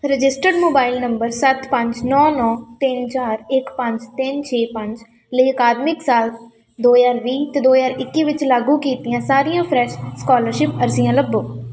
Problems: background sounds at intervals